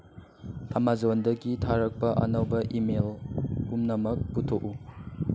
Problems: constant background noise